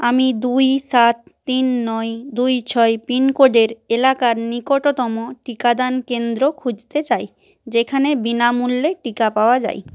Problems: none marked